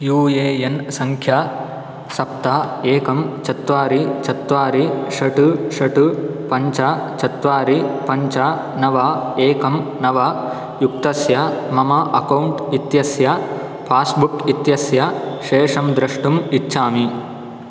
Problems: none marked